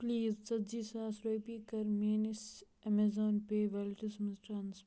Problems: none marked